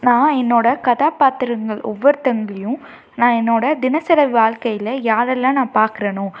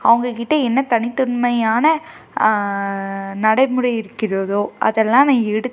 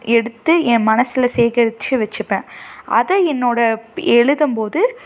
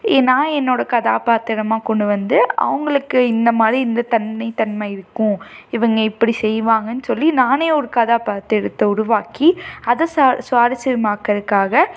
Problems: none marked